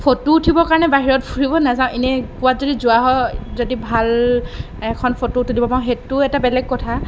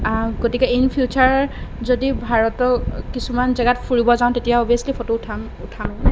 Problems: none marked